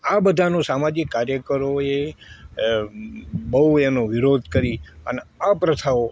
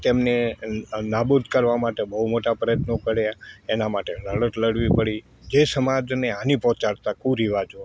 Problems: constant background noise